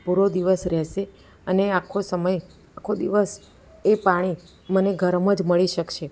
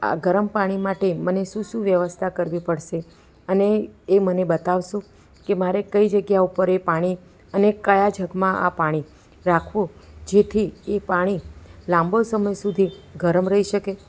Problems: constant background noise